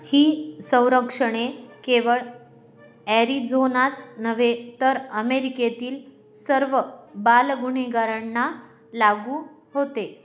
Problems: background sounds at intervals